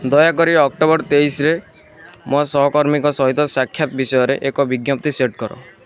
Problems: constant background noise, continuous background conversations